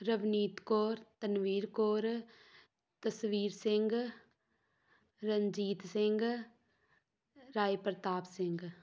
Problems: background sounds at intervals